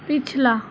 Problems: none marked